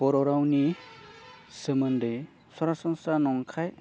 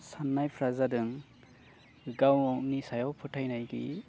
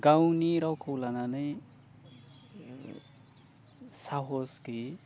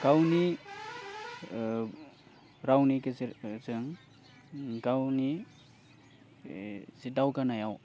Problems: constant background noise